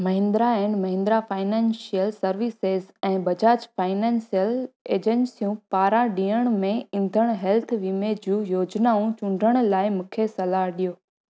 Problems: none marked